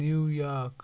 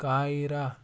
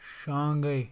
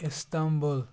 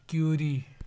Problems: background sounds at intervals